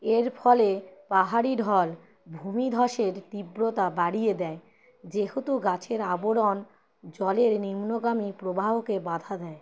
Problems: none marked